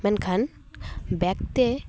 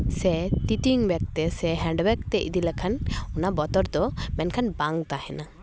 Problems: background sounds at intervals